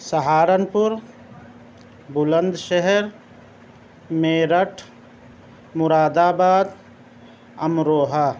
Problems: none marked